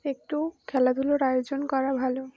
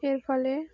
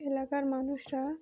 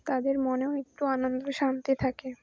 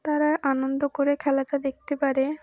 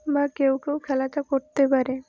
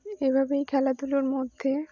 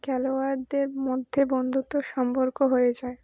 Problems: background sounds at intervals